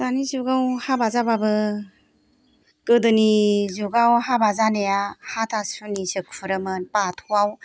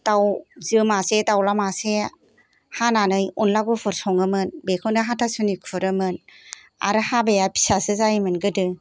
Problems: background sounds at intervals